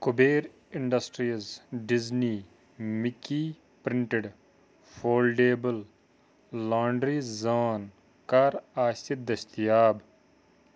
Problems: none marked